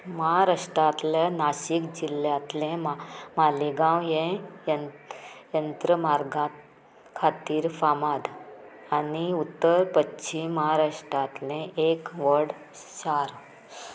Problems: none marked